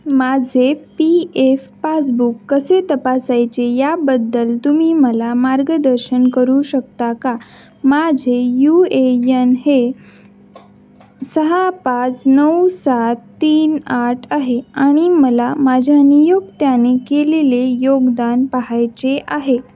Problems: constant background noise